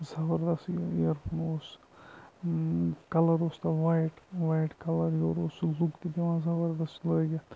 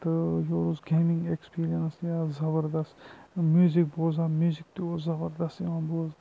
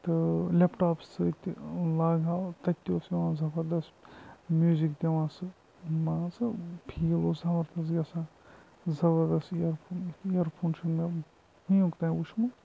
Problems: background sounds at intervals, low volume